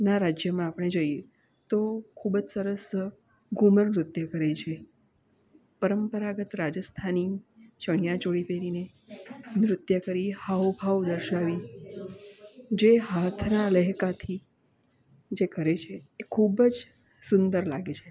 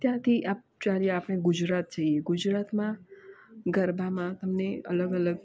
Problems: constant background noise